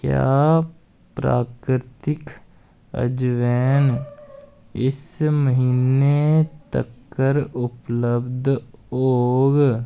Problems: none marked